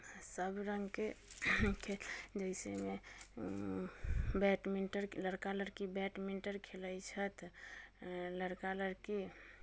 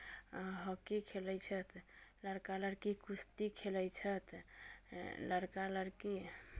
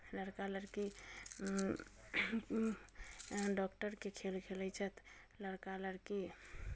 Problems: low volume